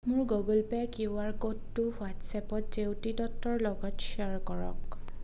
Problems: constant background noise